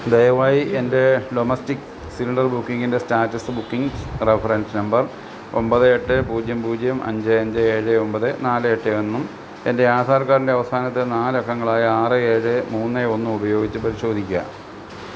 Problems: constant background noise